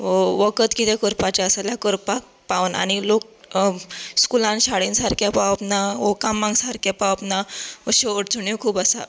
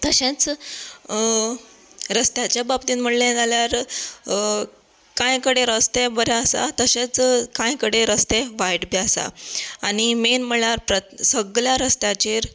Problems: background sounds at intervals